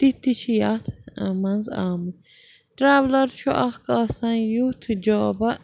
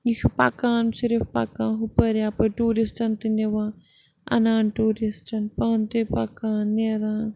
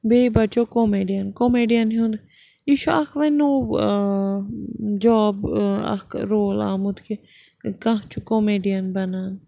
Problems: background sounds at intervals